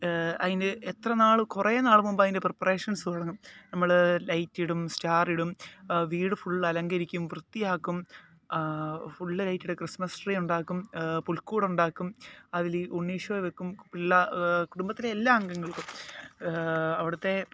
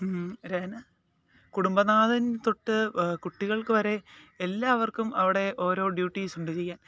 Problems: none marked